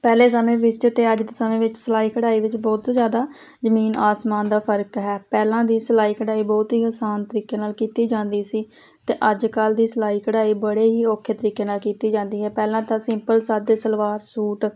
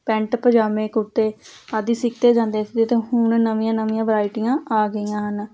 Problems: constant background noise